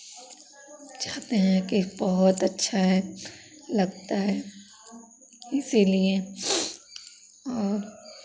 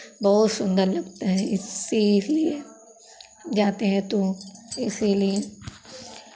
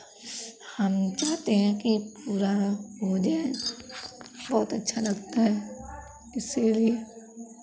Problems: background sounds at intervals, background conversations at intervals